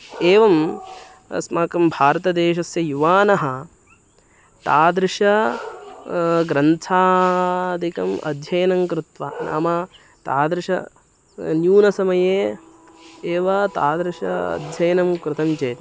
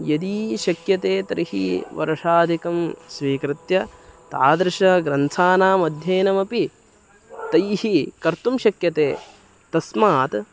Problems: constant background noise